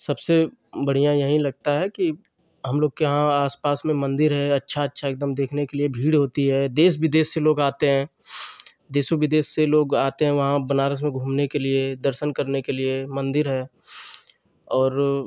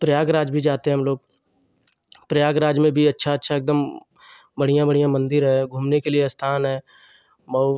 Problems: none marked